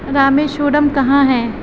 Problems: constant background noise